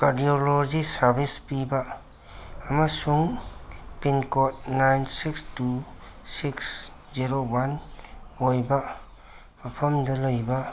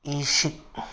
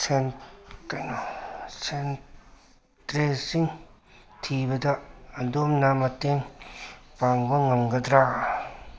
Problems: background sounds at intervals, background conversations at intervals